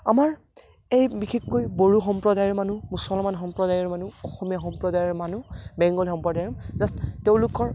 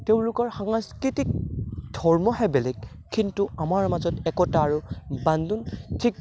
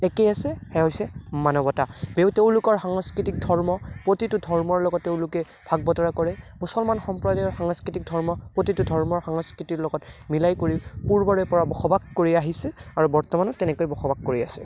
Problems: background sounds at intervals